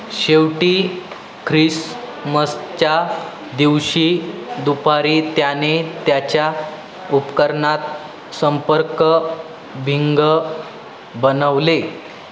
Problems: constant background noise, continuous background conversations